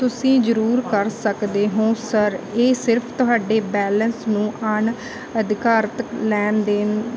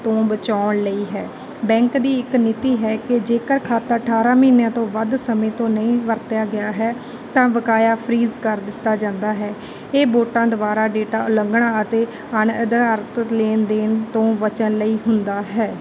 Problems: background sounds at intervals